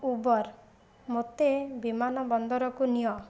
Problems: none marked